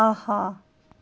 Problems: constant background noise